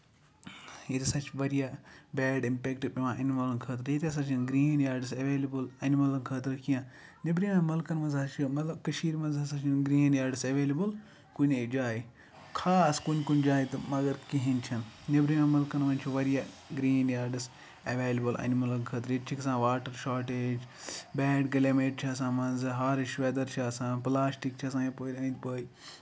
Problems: background sounds at intervals